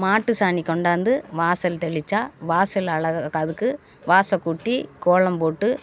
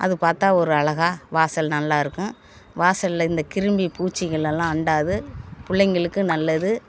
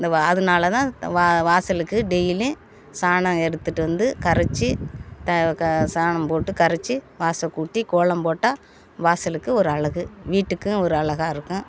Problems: none marked